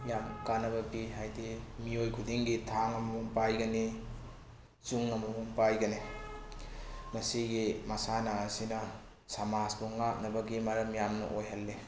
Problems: background sounds at intervals